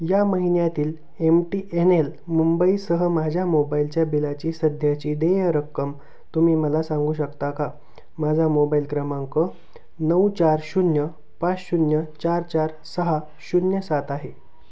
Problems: constant background noise